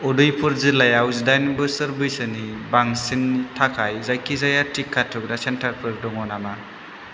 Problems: constant background noise